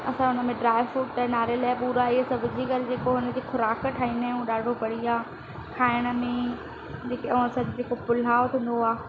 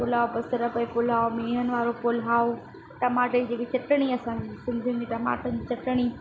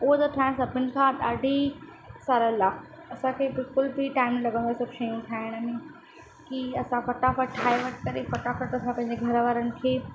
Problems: constant background noise